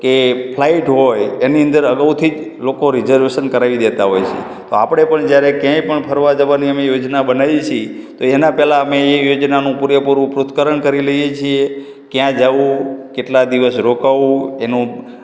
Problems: background sounds at intervals, echo